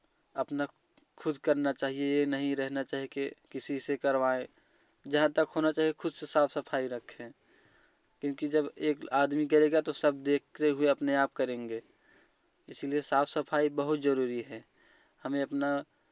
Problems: none marked